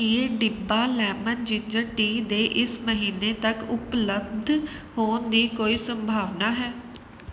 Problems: none marked